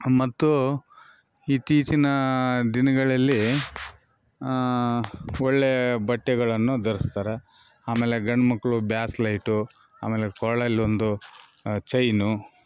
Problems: background sounds at intervals